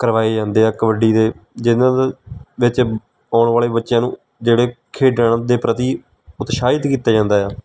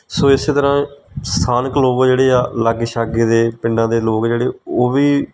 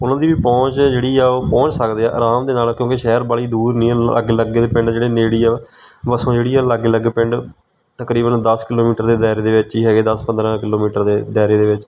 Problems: none marked